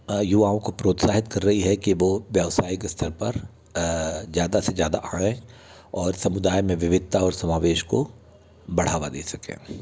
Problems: background sounds at intervals